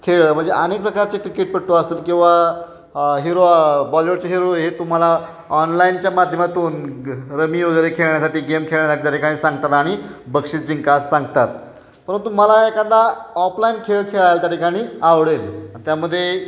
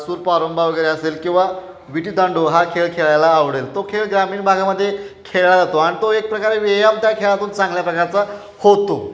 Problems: none marked